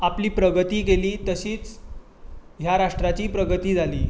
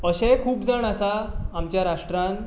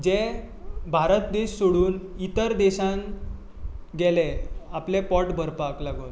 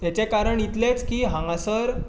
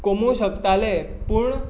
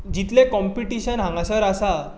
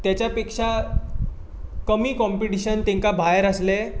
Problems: constant background noise